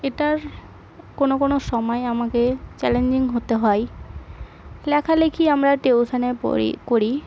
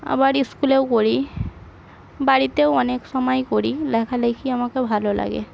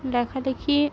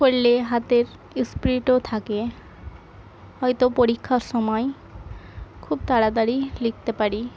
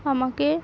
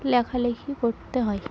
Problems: constant background noise, background conversations at intervals